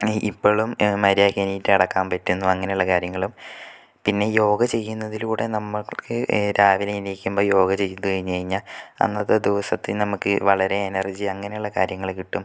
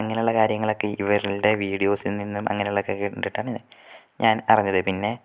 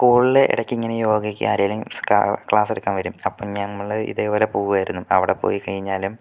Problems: none marked